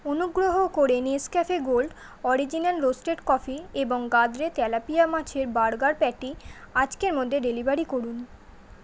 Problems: constant background noise